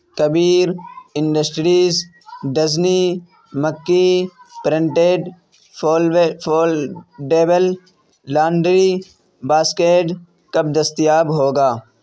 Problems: constant background noise